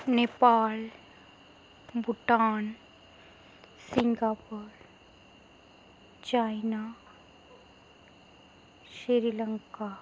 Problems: background sounds at intervals